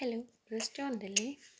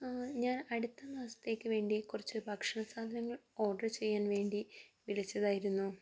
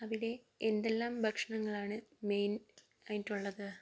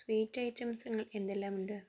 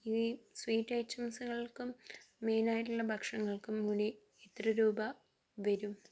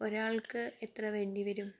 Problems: low volume